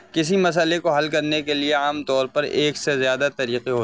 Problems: constant background noise